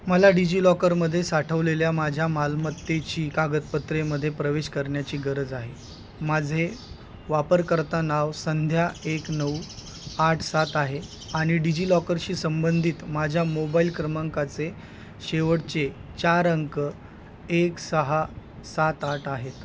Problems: constant background noise